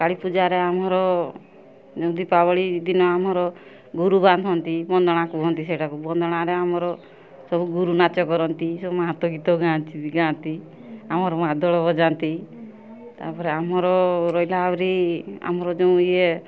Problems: none marked